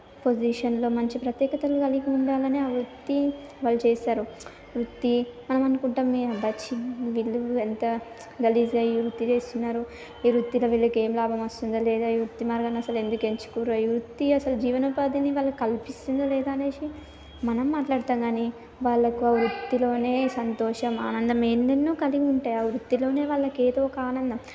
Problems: none marked